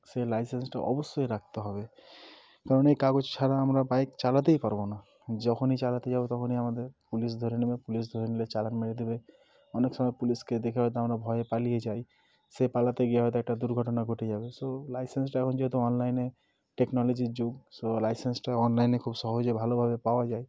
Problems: none marked